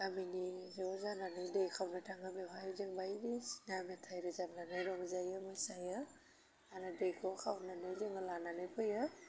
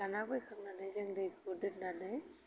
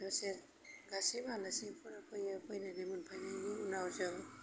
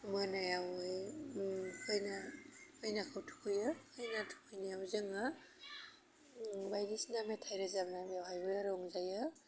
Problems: constant background noise